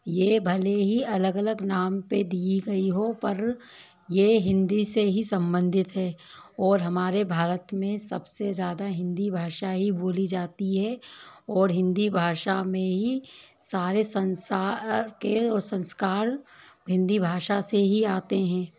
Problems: constant background noise